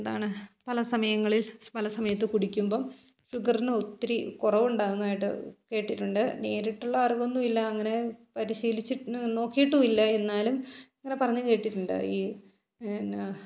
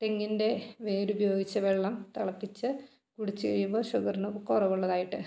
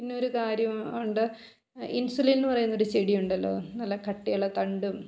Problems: none marked